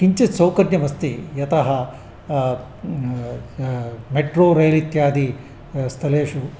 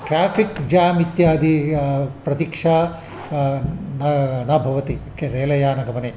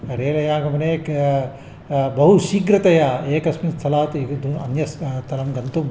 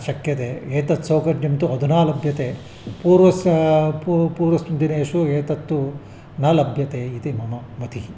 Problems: none marked